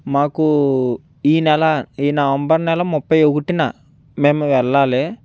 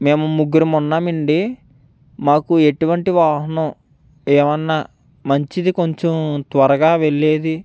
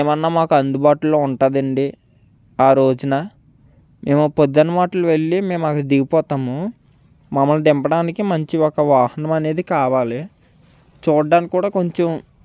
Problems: none marked